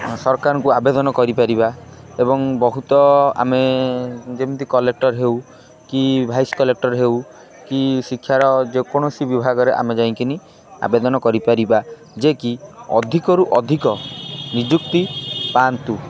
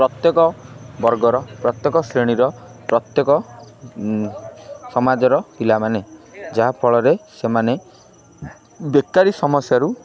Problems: constant background noise, continuous background conversations